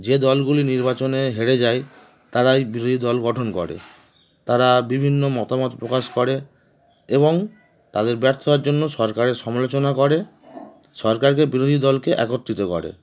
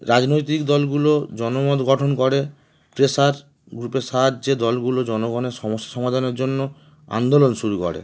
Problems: background sounds at intervals, background conversations at intervals